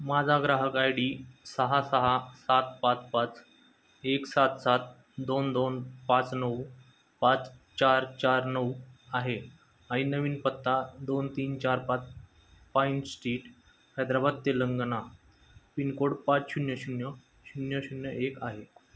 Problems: constant background noise